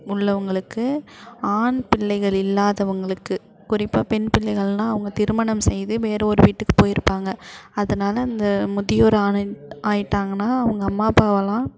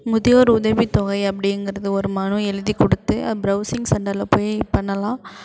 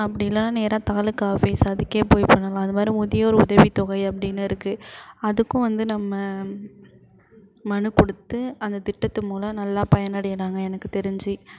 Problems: constant background noise